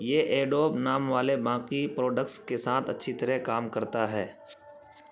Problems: constant background noise